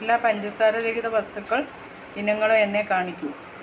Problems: constant background noise